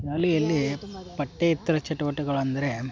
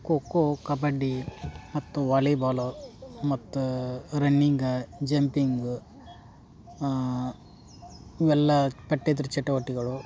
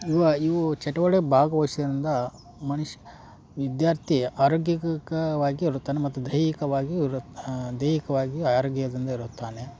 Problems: background conversations at intervals